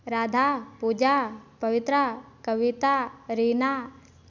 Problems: none marked